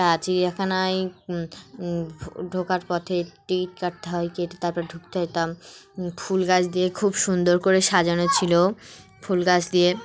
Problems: none marked